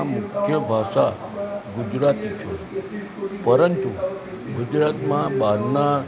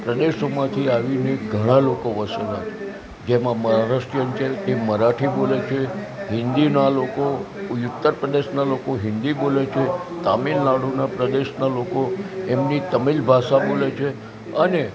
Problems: constant background noise